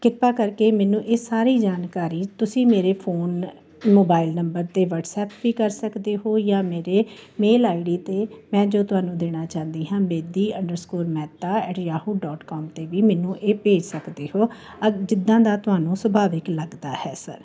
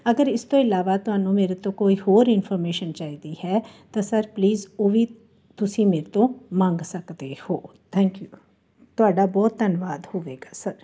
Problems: none marked